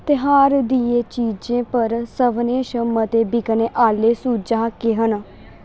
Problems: constant background noise